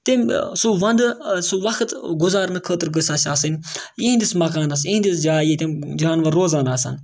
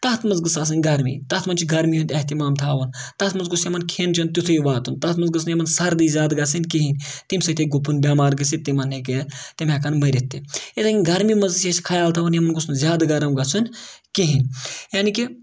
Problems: background sounds at intervals